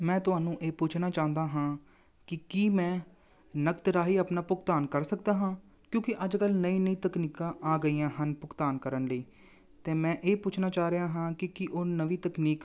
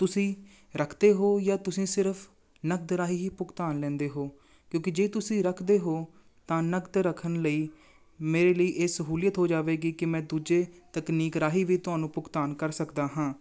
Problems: none marked